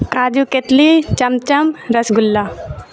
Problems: background sounds at intervals, background conversations at intervals